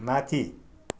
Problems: none marked